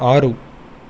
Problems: constant background noise